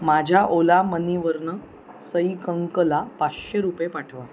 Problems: constant background noise, continuous background conversations